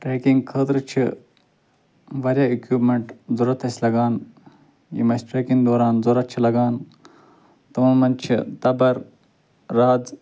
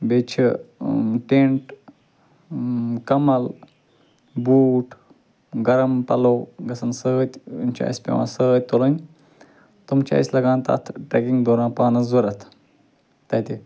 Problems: constant background noise